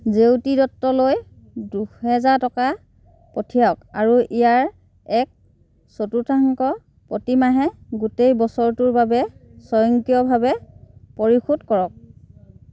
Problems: none marked